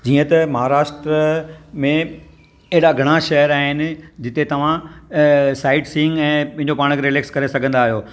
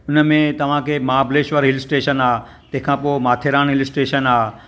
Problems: none marked